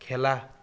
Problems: none marked